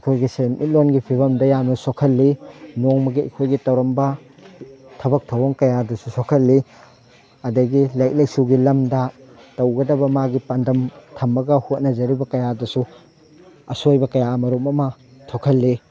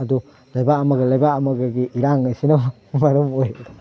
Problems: background sounds at intervals